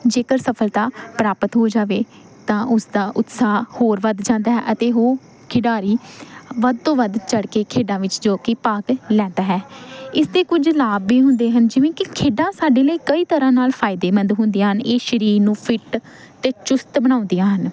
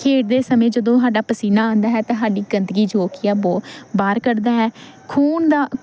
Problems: background sounds at intervals